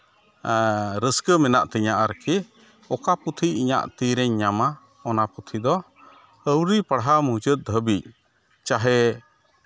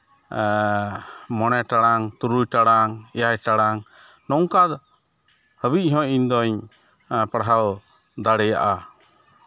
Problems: none marked